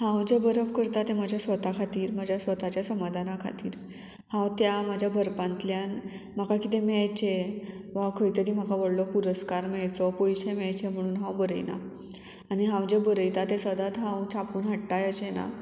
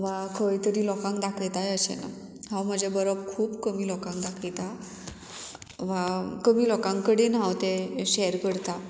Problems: none marked